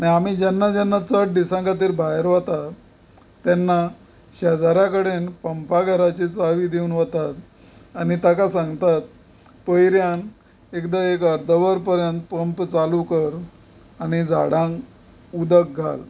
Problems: none marked